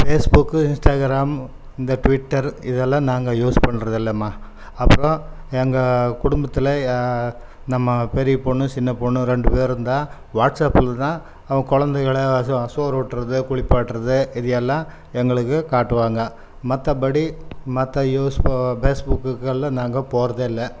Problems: none marked